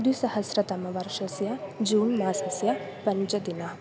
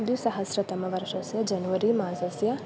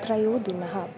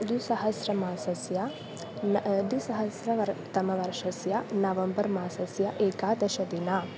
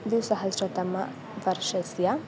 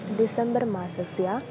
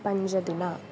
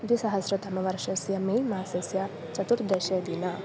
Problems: constant background noise, continuous background conversations